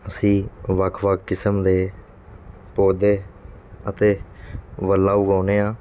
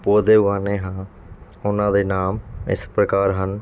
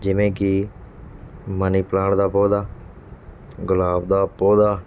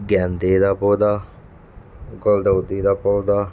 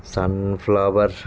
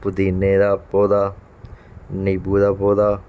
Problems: background sounds at intervals